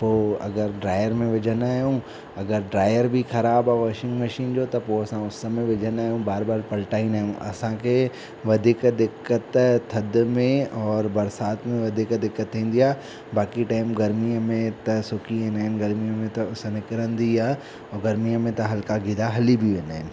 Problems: constant background noise